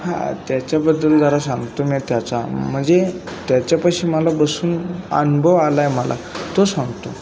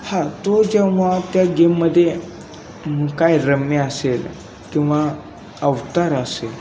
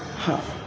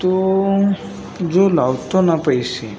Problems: none marked